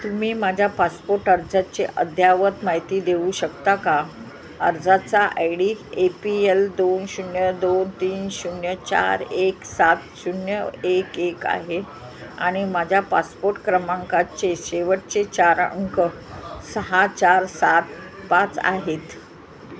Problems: constant background noise, continuous background conversations